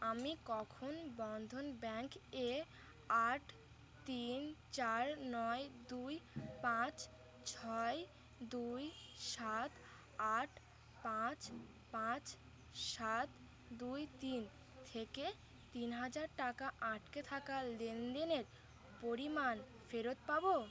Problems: constant background noise